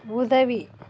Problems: none marked